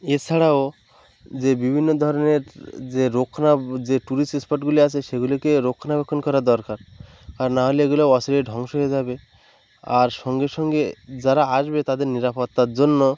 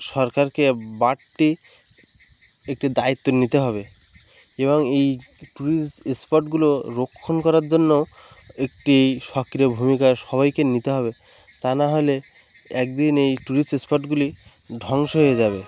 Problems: none marked